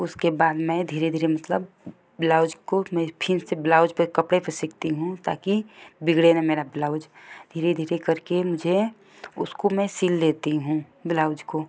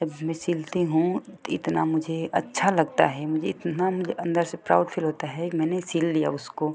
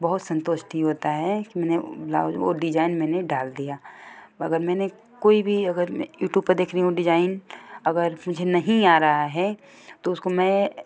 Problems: none marked